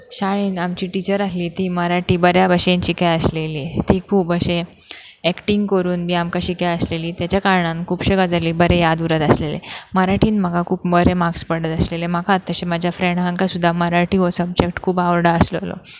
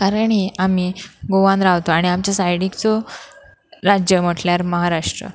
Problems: background sounds at intervals